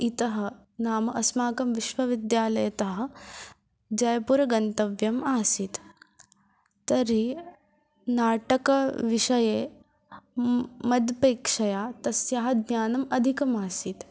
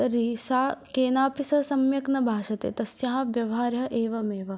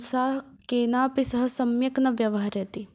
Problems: none marked